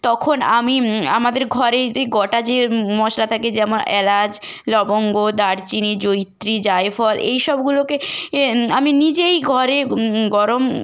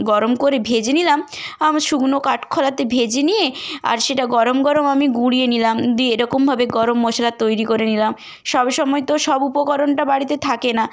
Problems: background sounds at intervals